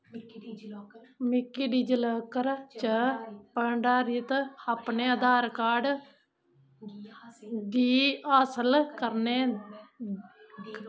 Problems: constant background noise